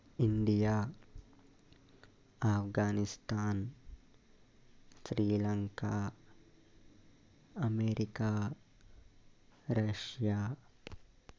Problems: constant background noise